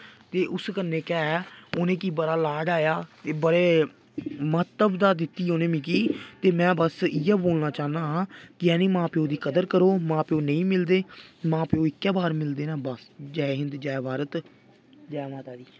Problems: background sounds at intervals